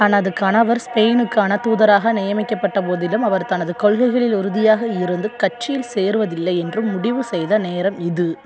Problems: background sounds at intervals